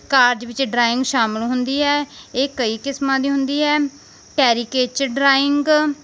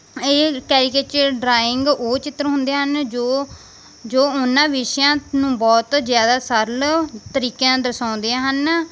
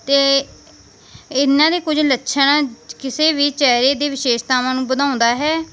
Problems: background sounds at intervals